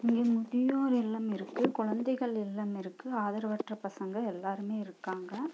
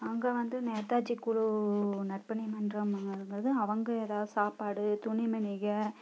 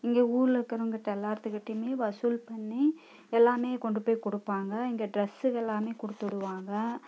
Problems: low volume